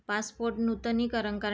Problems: background sounds at intervals